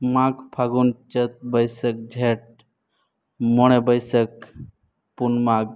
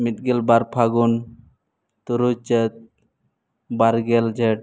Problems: none marked